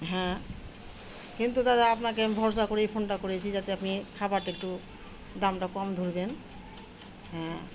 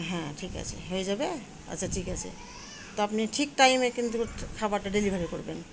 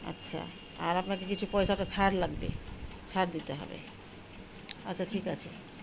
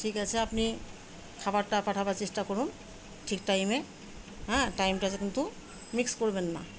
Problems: constant background noise, continuous background conversations